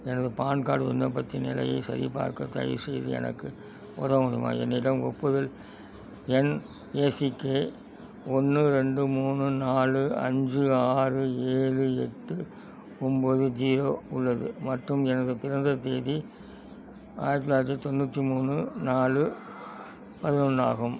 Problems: background sounds at intervals